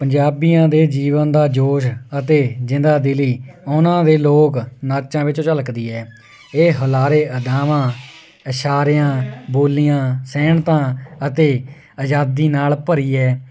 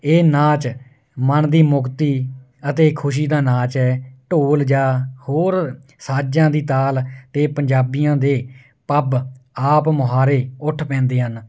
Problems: none marked